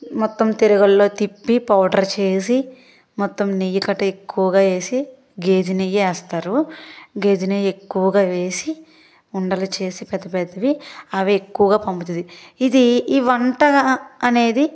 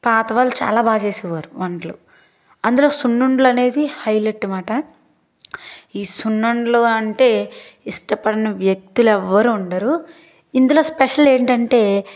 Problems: constant background noise